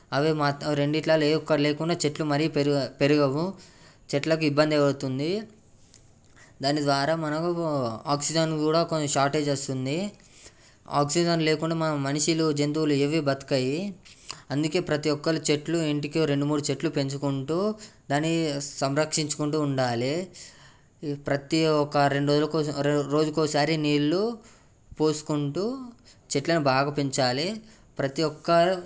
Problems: background sounds at intervals